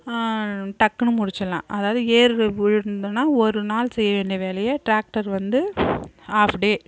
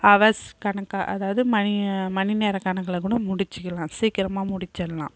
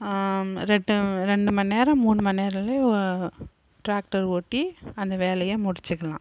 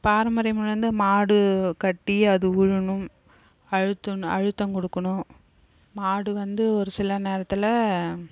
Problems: background conversations at intervals